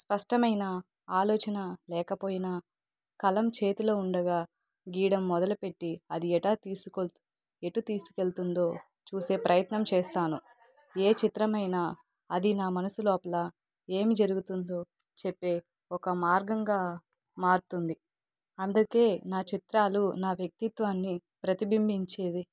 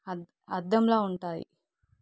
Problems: background conversations at intervals